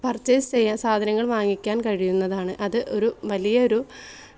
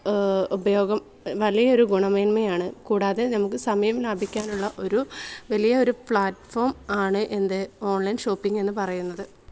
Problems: background conversations at intervals